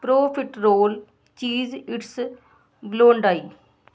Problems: none marked